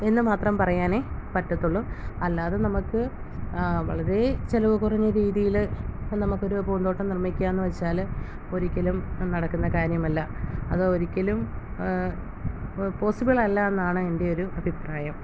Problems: constant background noise